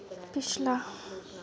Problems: none marked